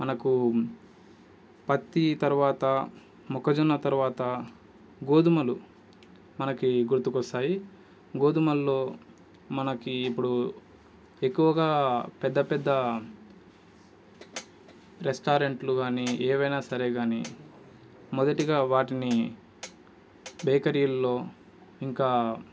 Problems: constant background noise